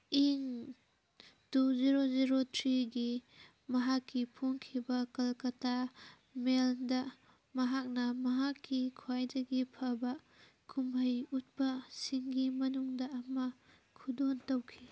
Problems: none marked